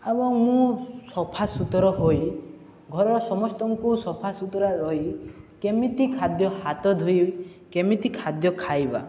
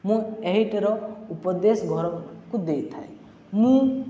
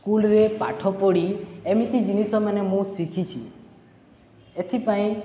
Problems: none marked